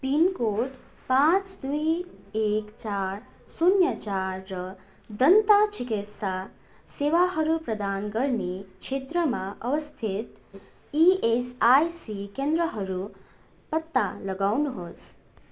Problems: background sounds at intervals